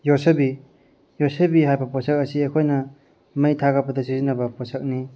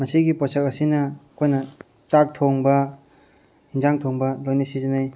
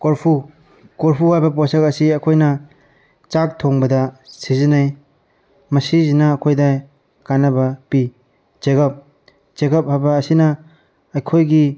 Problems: none marked